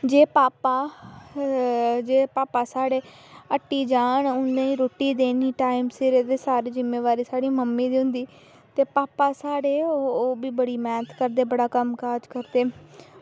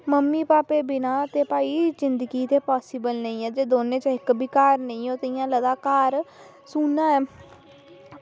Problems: none marked